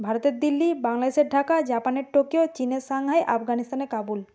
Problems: none marked